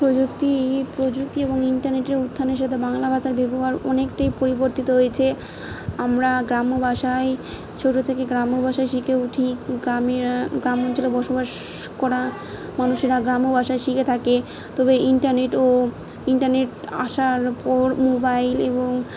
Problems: none marked